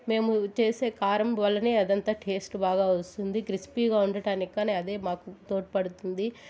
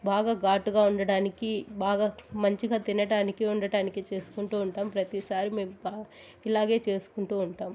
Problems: constant background noise